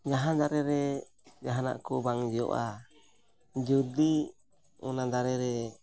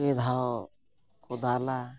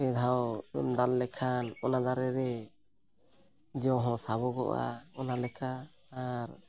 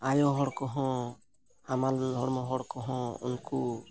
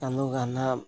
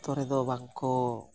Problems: none marked